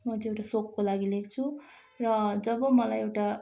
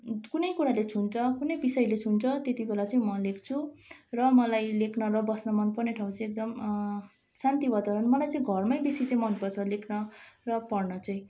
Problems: constant background noise